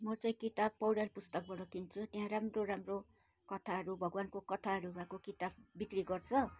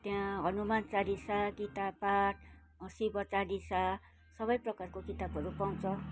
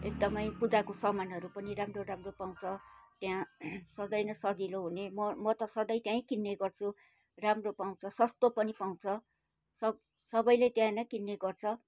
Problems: background sounds at intervals